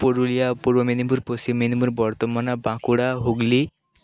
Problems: none marked